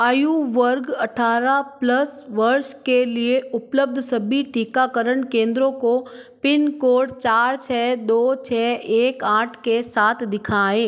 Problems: none marked